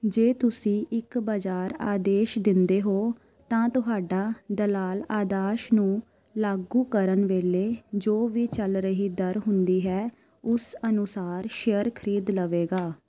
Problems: constant background noise